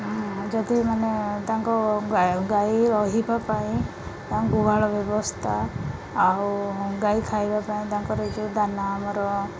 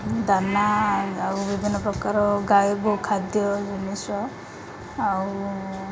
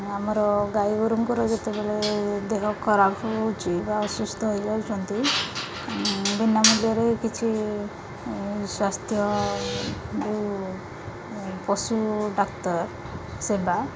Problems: constant background noise, background conversations at intervals